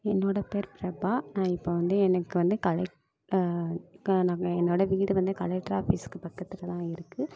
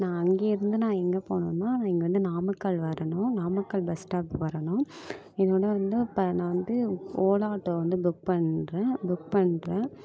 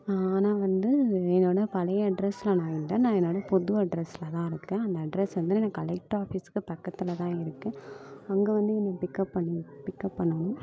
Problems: continuous background conversations